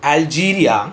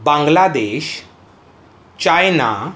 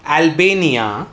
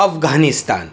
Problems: none marked